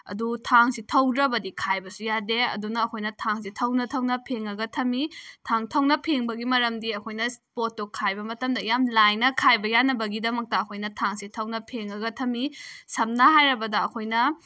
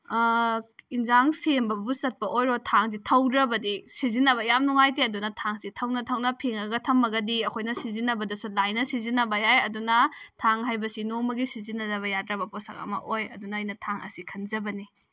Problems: none marked